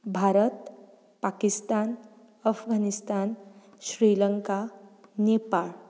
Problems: background sounds at intervals